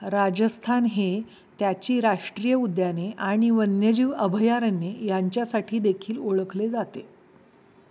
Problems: background sounds at intervals